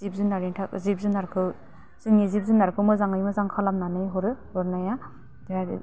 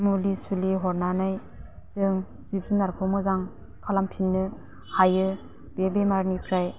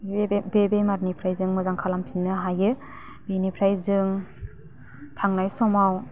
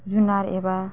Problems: low volume